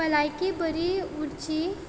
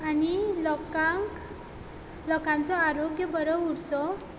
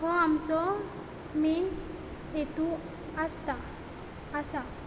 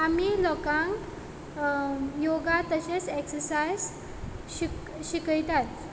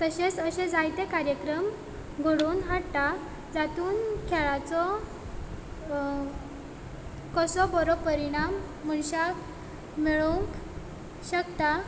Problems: none marked